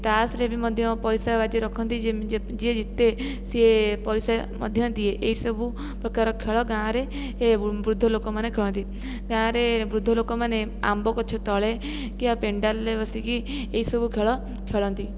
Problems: none marked